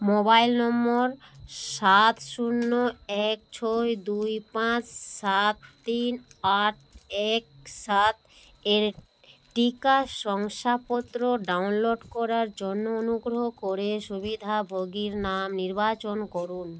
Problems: constant background noise